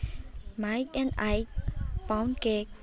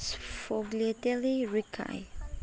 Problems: background sounds at intervals